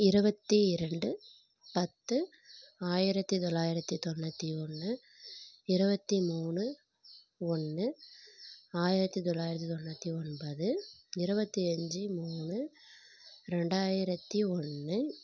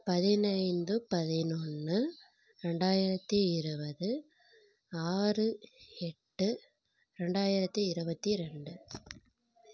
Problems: none marked